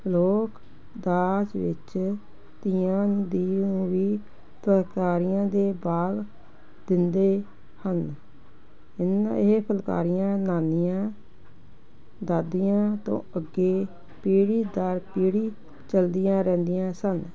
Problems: constant background noise